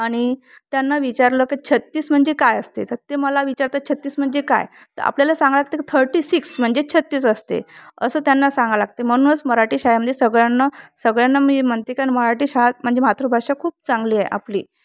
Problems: none marked